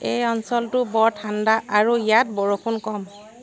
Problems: none marked